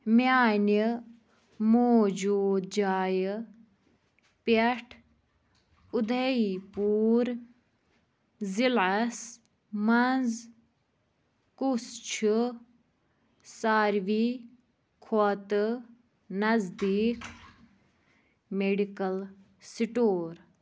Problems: none marked